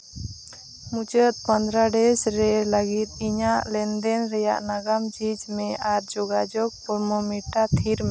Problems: constant background noise